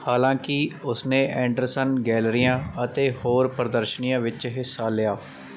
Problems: background sounds at intervals